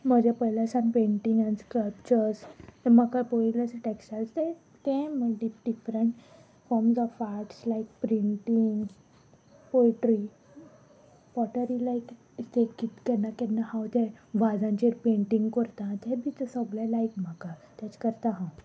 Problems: constant background noise, background conversations at intervals